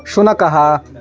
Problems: background sounds at intervals